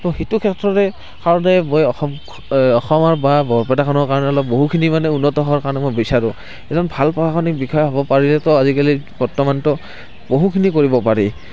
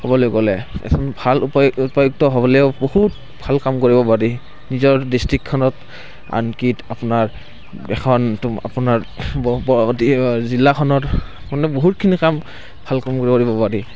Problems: constant background noise